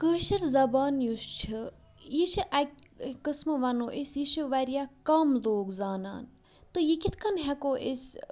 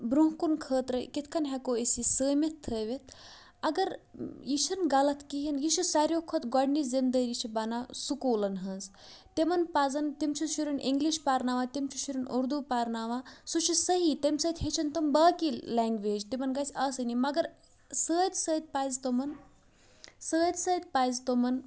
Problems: background sounds at intervals